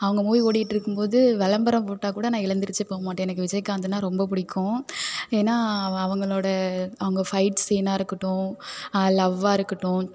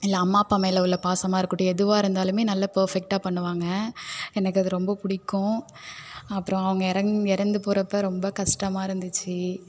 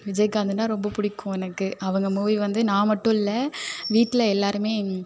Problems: constant background noise